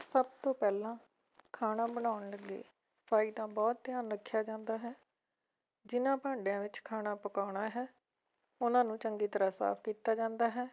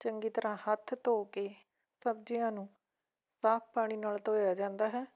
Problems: background sounds at intervals